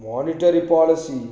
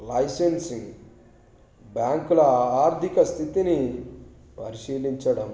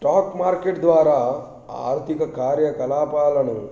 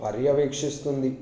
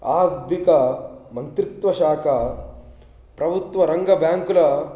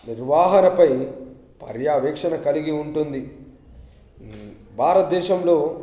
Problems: background sounds at intervals